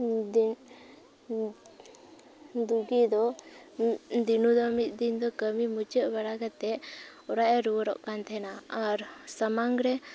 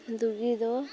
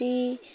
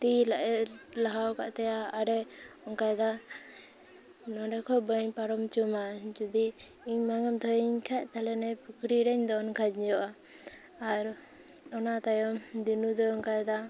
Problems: background sounds at intervals